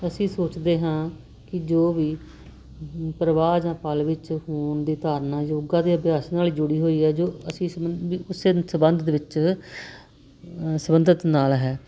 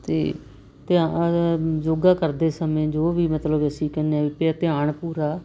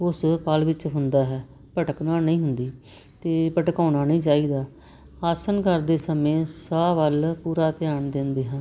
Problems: constant background noise